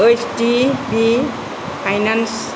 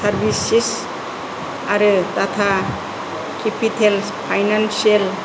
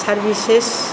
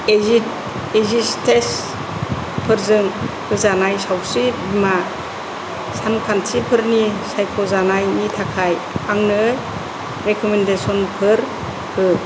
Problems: constant background noise, low volume